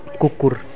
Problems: continuous background conversations